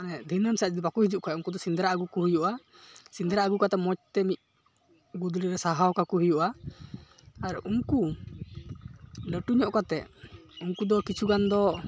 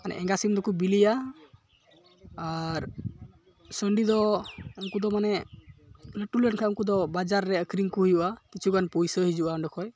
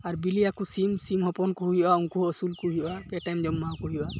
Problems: none marked